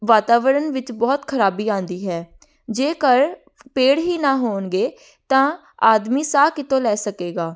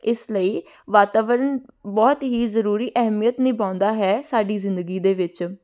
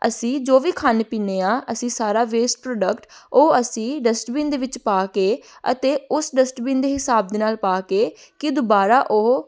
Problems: none marked